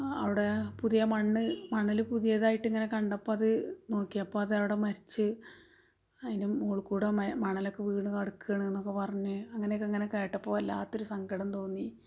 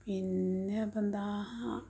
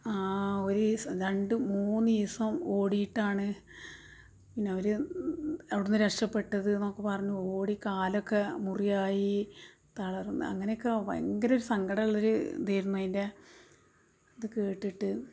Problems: background sounds at intervals, low volume